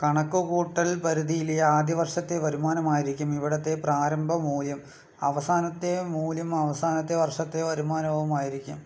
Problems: low volume